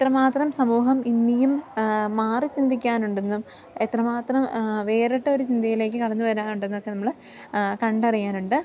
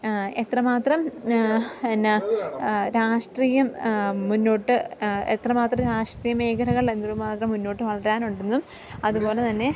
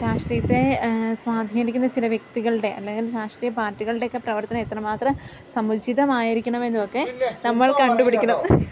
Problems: none marked